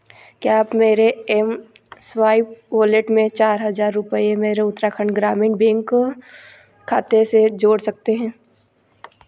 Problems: background sounds at intervals